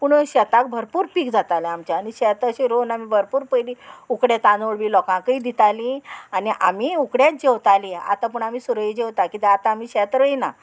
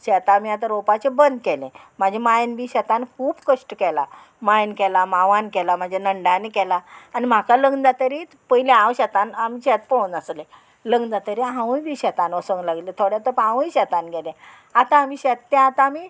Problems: none marked